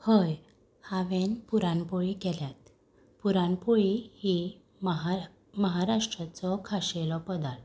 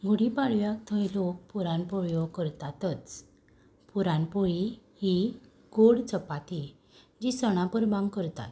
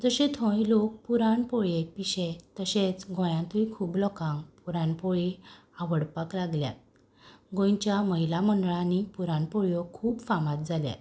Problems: none marked